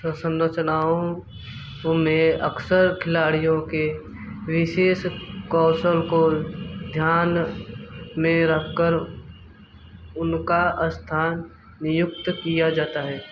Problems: background sounds at intervals